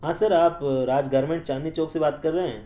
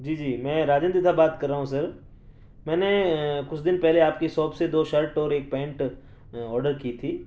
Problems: none marked